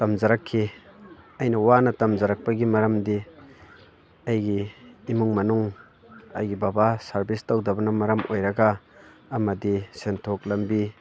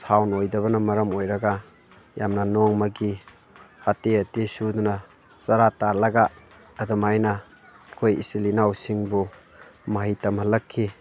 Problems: constant background noise